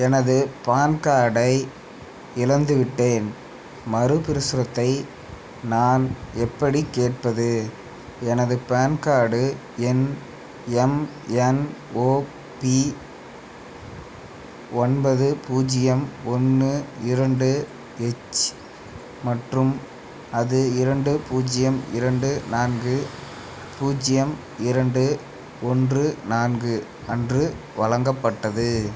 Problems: constant background noise